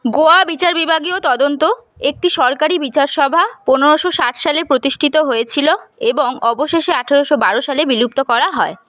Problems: constant background noise